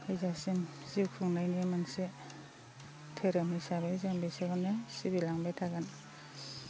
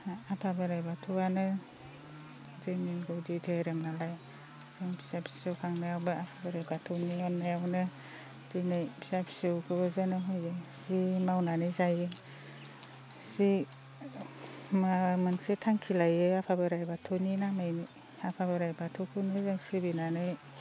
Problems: constant background noise